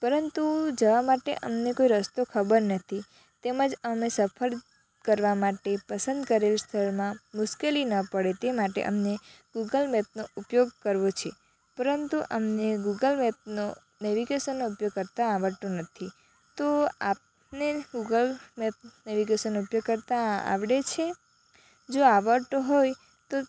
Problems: constant background noise